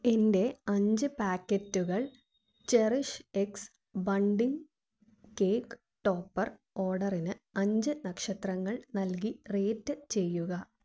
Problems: low volume